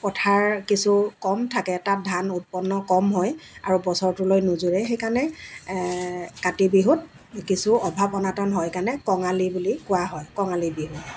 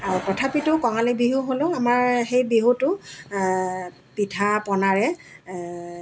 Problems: none marked